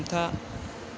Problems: constant background noise